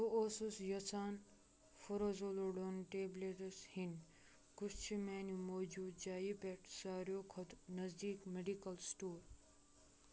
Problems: none marked